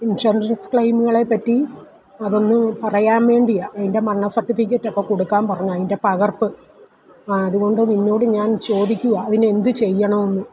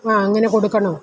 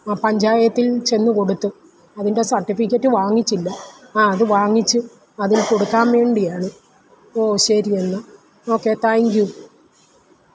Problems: background sounds at intervals